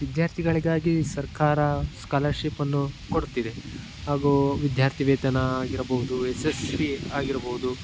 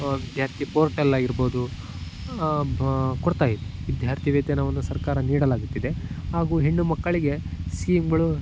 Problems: constant background noise